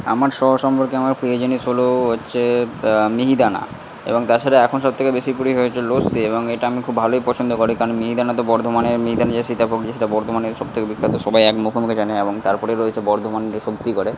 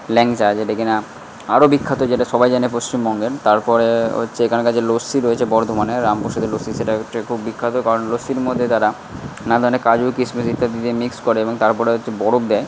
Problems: constant background noise